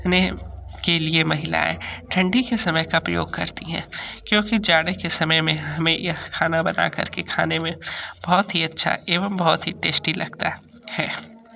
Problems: none marked